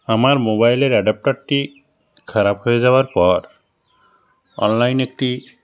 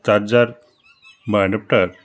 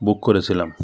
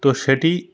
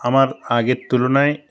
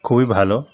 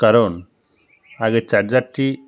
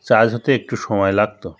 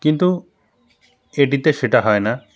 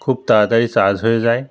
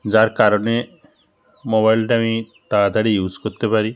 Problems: constant background noise, background conversations at intervals